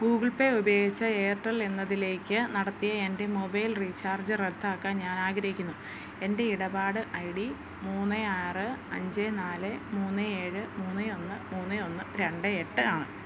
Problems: constant background noise